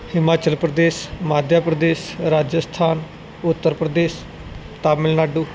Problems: background sounds at intervals